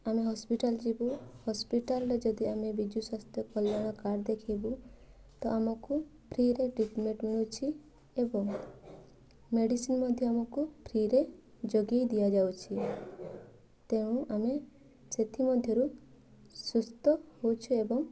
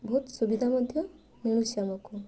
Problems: constant background noise